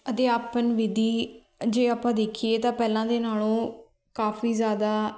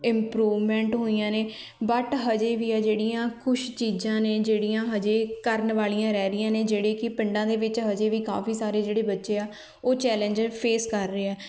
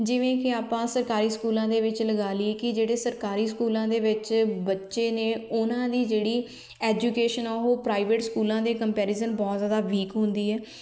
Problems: background conversations at intervals